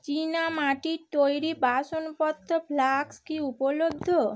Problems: constant background noise